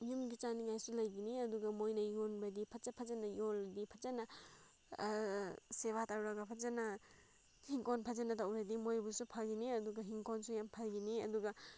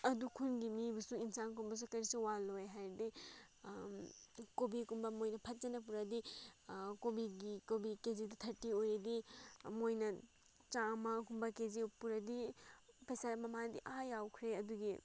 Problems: background sounds at intervals